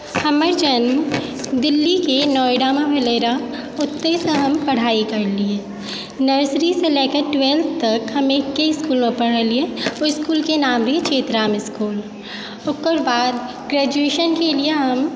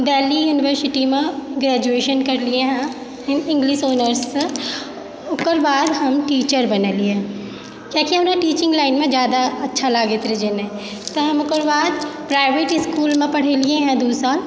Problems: background sounds at intervals, background conversations at intervals